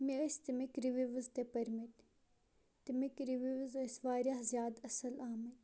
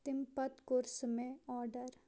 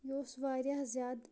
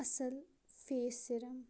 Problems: low volume